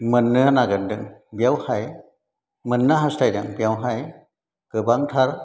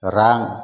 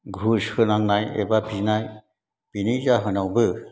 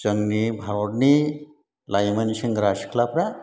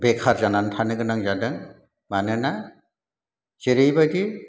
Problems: background sounds at intervals